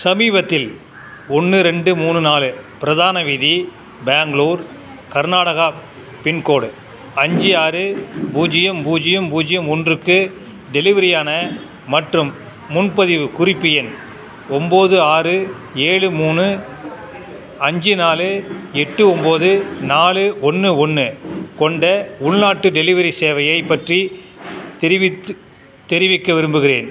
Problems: background conversations at intervals